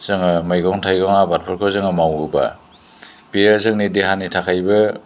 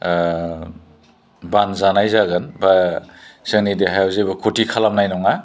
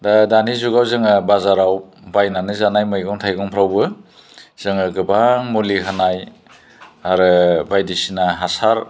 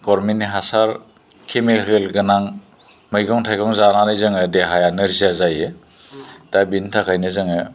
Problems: low volume